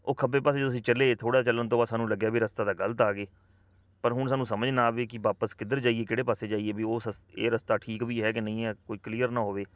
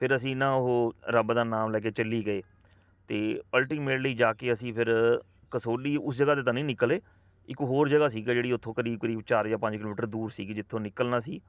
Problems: constant background noise